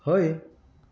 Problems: background sounds at intervals